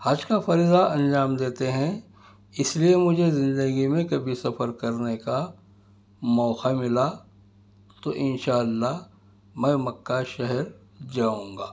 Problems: background sounds at intervals